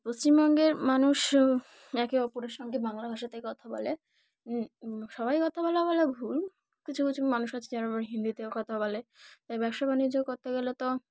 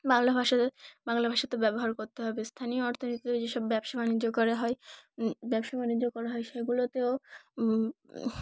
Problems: background sounds at intervals